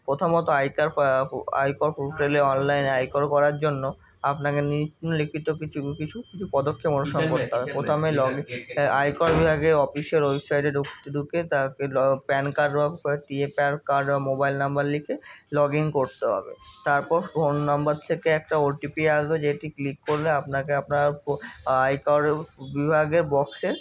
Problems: constant background noise